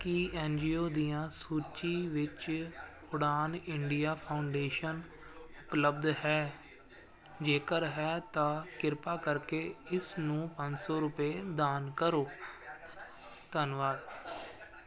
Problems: constant background noise